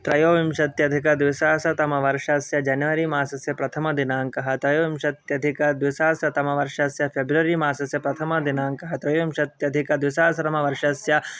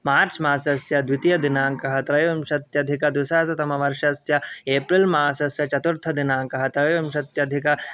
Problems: background sounds at intervals